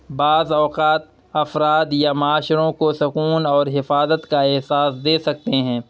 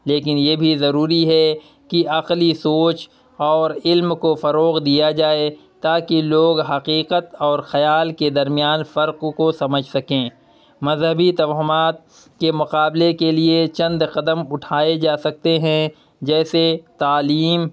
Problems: none marked